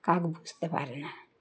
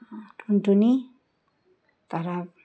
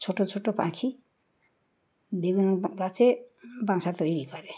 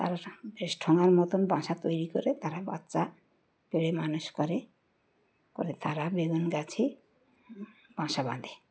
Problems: none marked